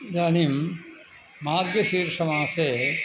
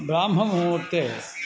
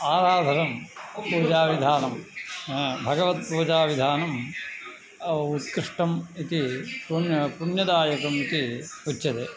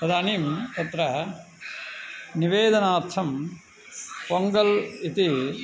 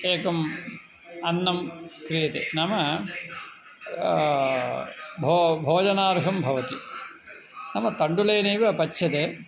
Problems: constant background noise, background conversations at intervals